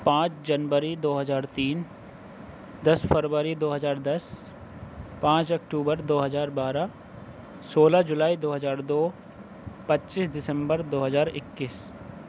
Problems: none marked